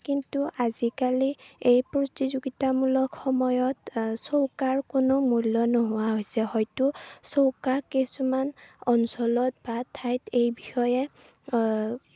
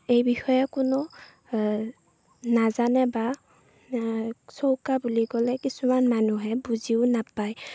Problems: none marked